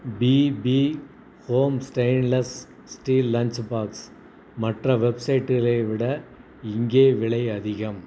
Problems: none marked